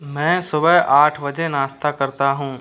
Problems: constant background noise